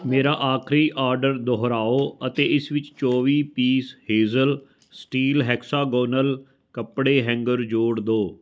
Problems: background conversations at intervals